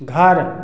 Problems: constant background noise, echo